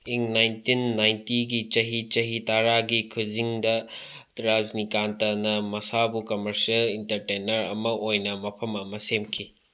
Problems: none marked